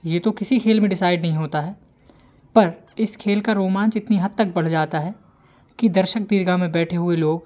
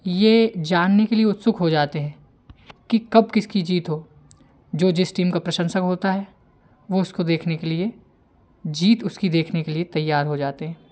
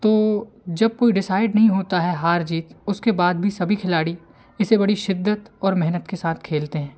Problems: none marked